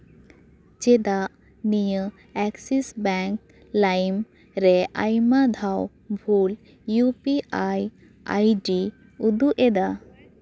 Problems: none marked